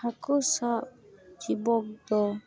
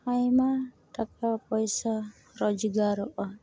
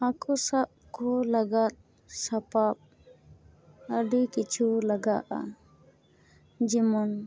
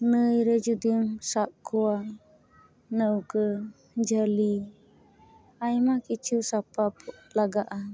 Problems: constant background noise